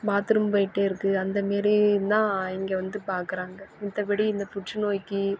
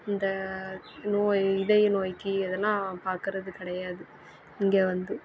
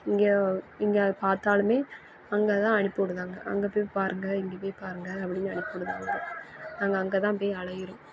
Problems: background sounds at intervals